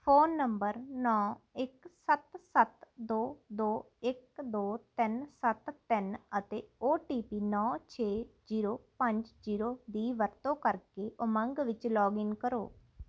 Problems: none marked